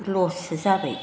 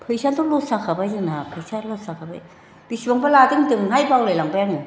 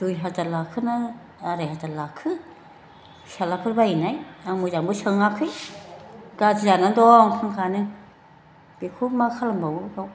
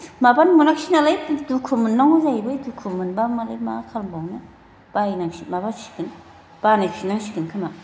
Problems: background conversations at intervals